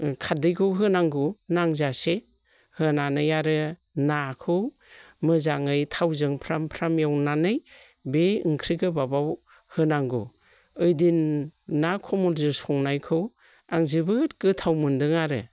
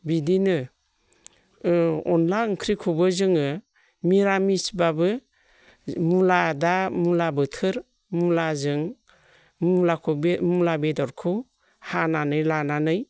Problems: none marked